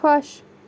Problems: background sounds at intervals